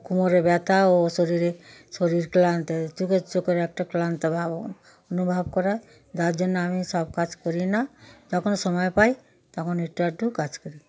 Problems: none marked